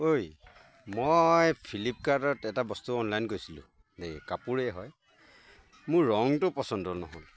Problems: constant background noise, background conversations at intervals